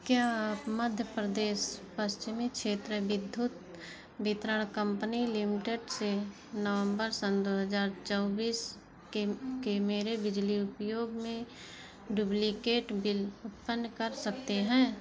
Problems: background sounds at intervals, background conversations at intervals